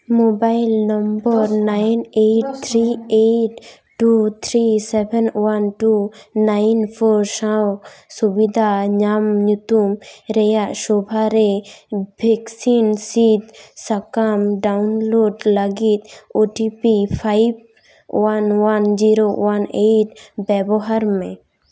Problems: background sounds at intervals